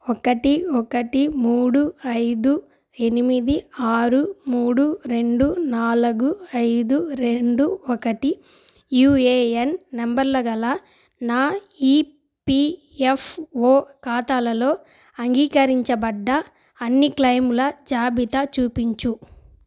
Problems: background sounds at intervals